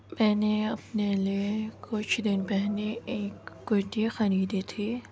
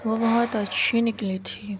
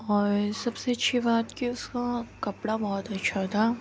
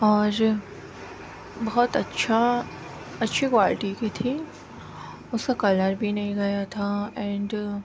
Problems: constant background noise